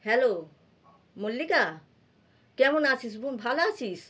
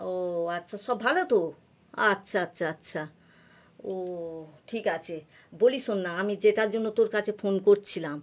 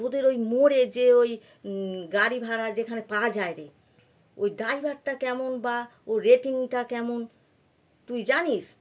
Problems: background sounds at intervals